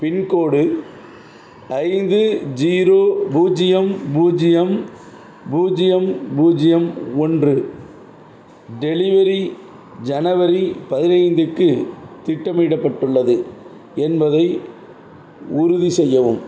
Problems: none marked